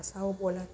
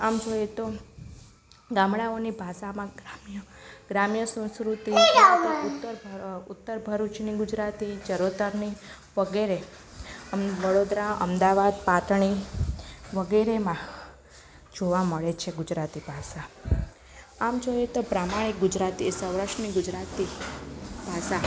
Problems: background conversations at intervals